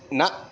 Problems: background sounds at intervals